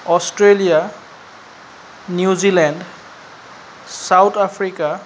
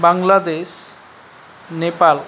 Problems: constant background noise